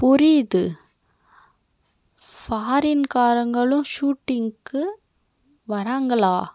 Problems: none marked